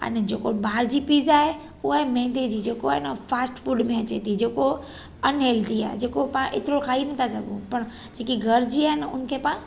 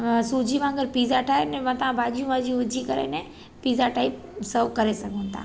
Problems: constant background noise